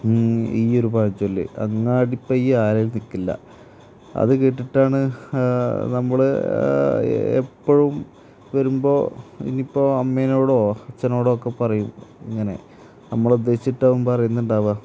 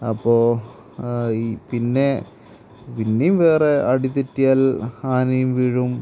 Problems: constant background noise